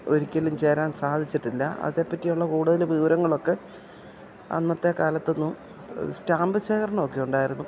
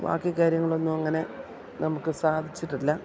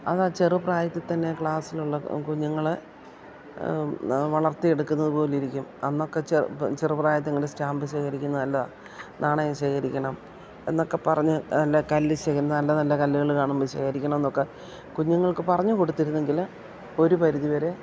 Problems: background sounds at intervals